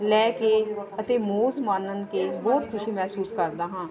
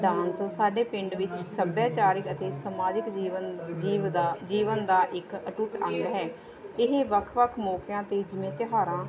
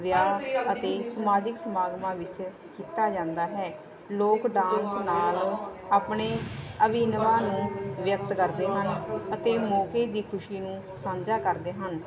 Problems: continuous background conversations